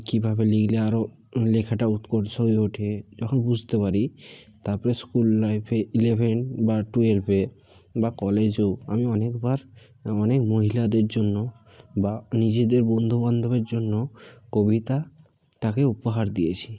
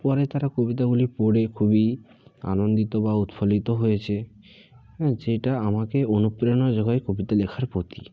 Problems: constant background noise